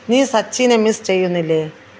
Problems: background sounds at intervals